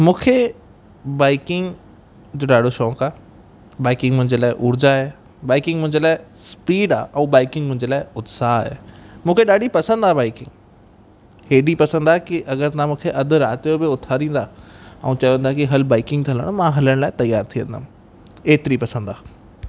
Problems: constant background noise, echo